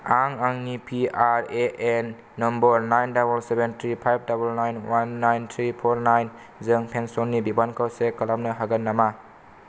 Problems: none marked